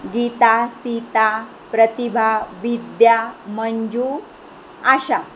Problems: constant background noise